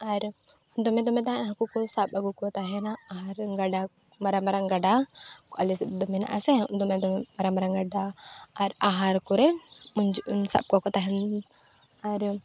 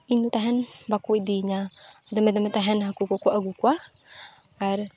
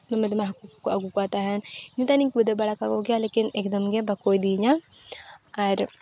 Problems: background sounds at intervals, background conversations at intervals